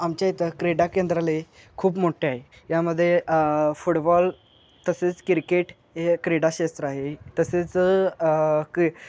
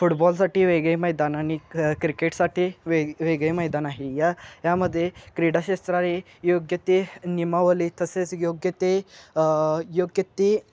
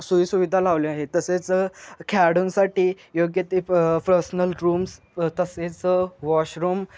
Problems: none marked